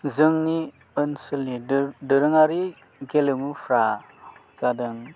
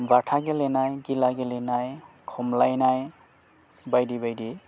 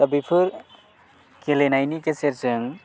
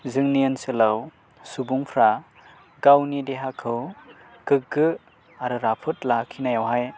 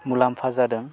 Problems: low volume